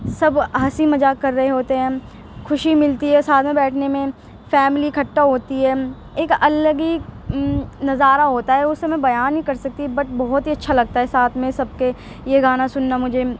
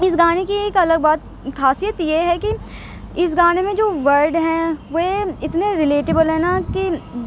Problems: constant background noise, background conversations at intervals